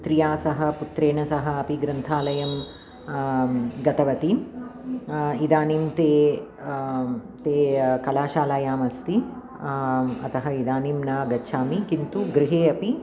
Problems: none marked